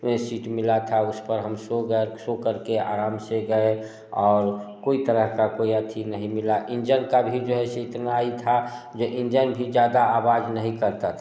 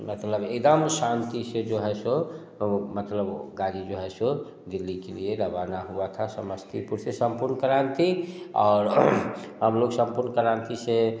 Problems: none marked